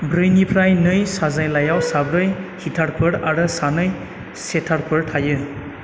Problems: none marked